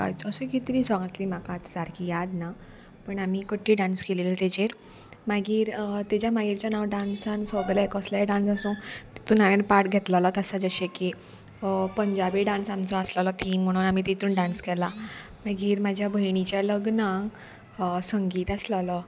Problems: background sounds at intervals